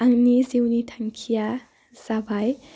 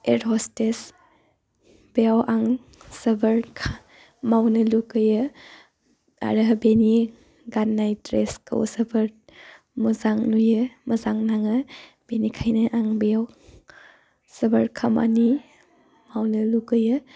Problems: constant background noise